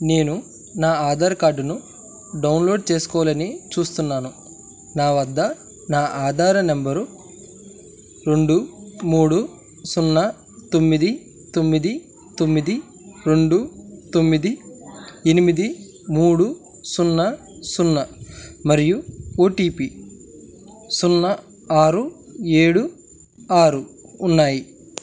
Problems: constant background noise